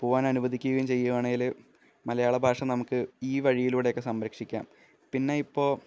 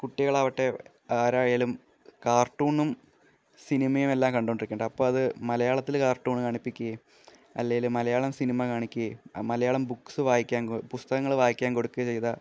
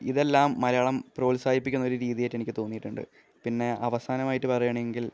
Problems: none marked